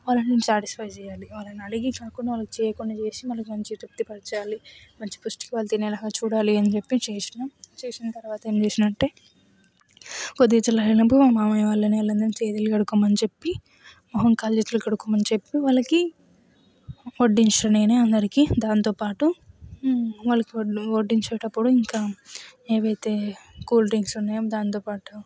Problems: none marked